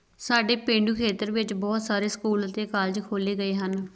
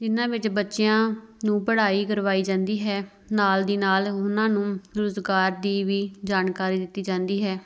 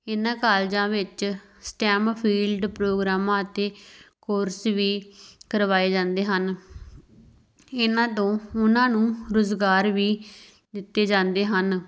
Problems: background sounds at intervals